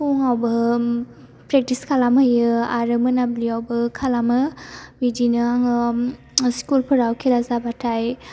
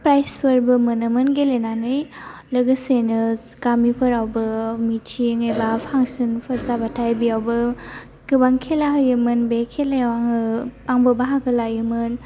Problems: low volume